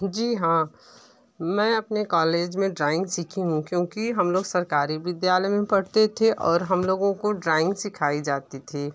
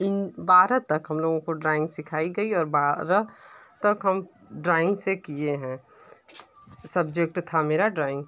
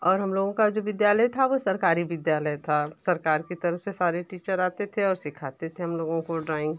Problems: none marked